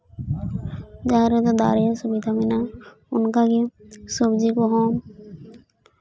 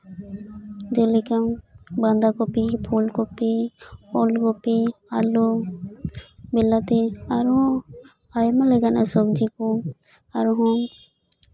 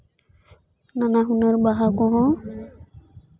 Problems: constant background noise, continuous background conversations